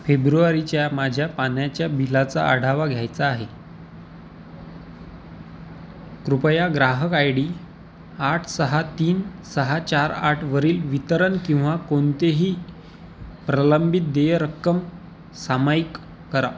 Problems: constant background noise